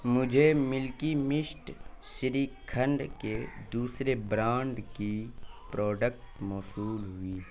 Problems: constant background noise